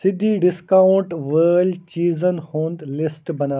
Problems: constant background noise